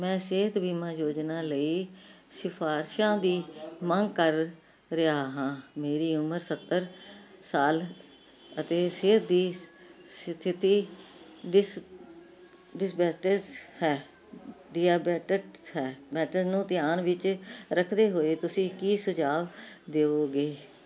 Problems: none marked